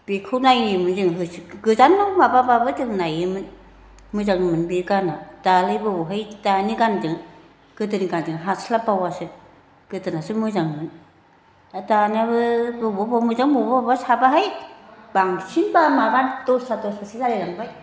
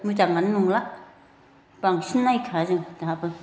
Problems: constant background noise